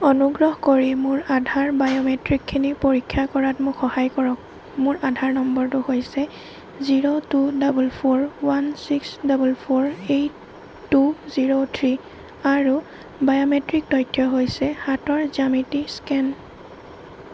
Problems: constant background noise